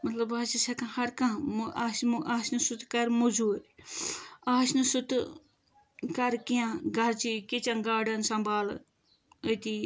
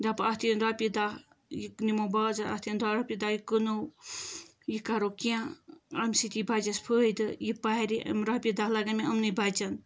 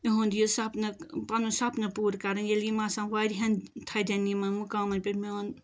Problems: background sounds at intervals